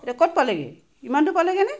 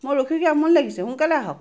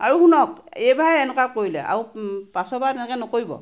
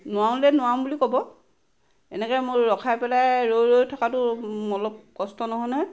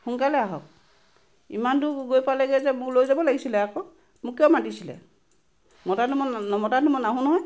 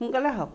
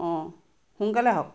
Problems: background sounds at intervals